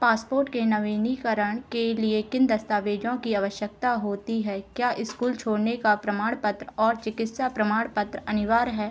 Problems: none marked